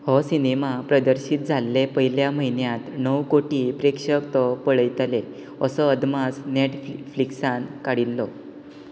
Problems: constant background noise